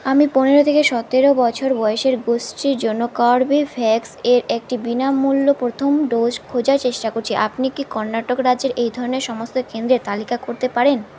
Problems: constant background noise